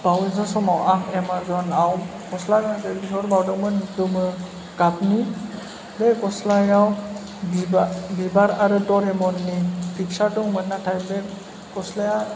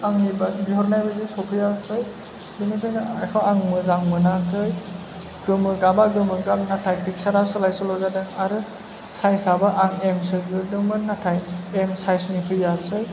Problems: constant background noise